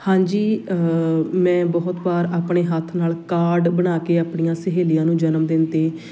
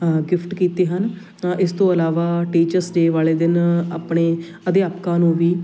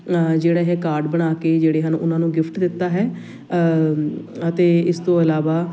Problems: constant background noise, background conversations at intervals